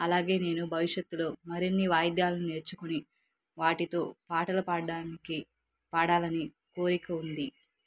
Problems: none marked